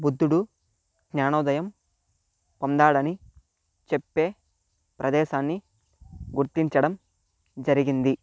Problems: none marked